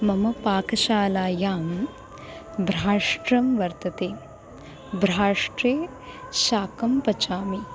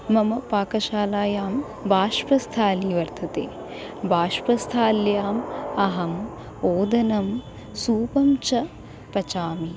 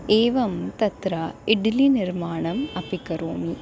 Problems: constant background noise